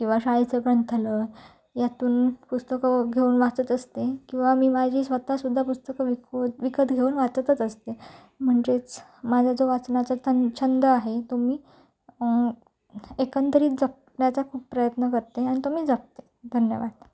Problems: low volume